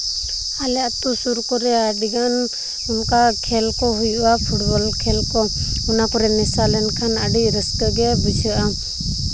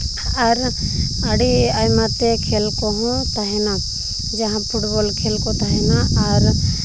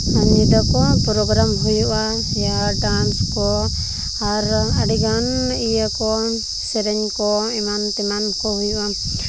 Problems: constant background noise